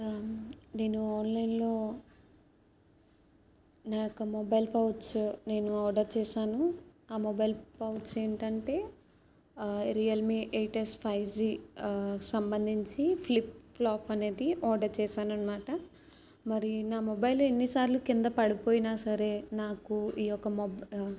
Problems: none marked